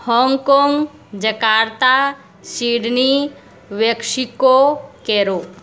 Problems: none marked